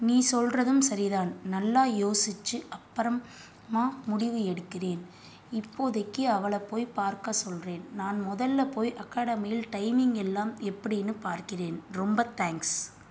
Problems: none marked